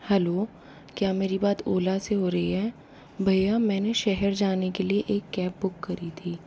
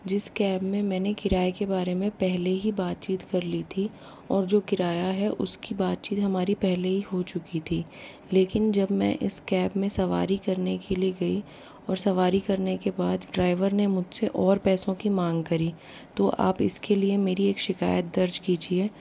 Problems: low volume